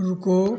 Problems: none marked